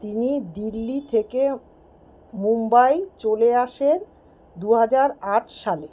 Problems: constant background noise